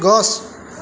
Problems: constant background noise, continuous background conversations